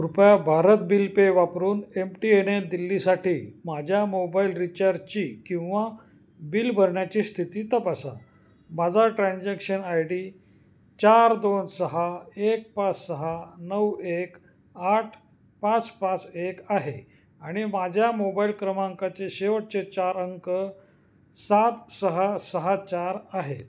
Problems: constant background noise, echo